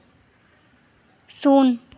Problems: background sounds at intervals